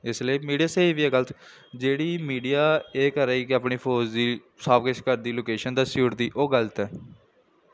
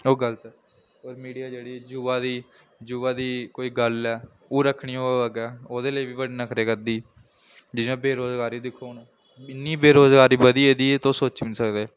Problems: none marked